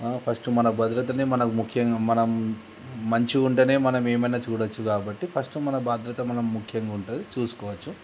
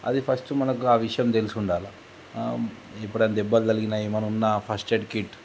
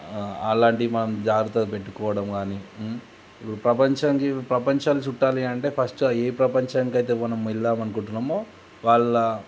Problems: constant background noise